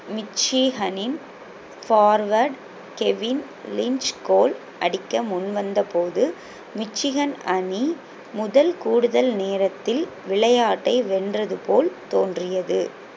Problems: constant background noise